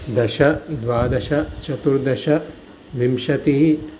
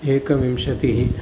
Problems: constant background noise